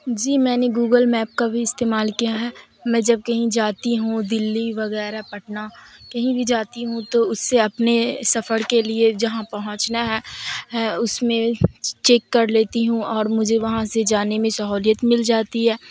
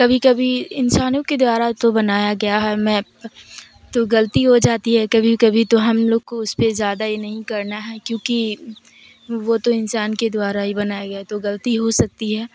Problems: constant background noise, background conversations at intervals